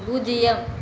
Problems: constant background noise